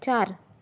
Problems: constant background noise